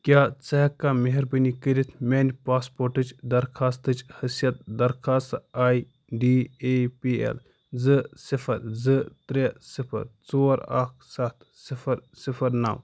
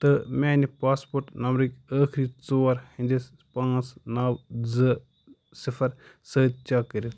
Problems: none marked